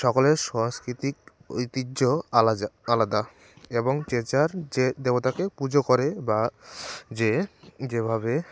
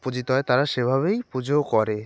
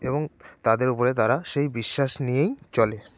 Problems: constant background noise